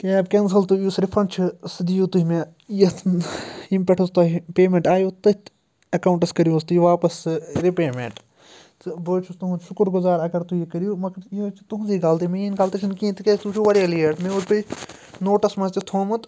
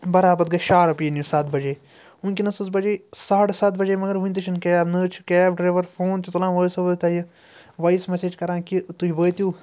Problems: background sounds at intervals